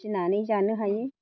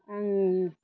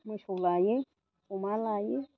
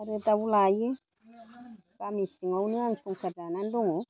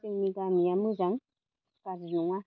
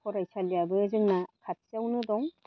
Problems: none marked